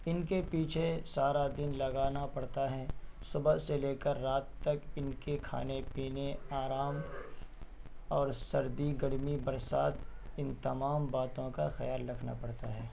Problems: constant background noise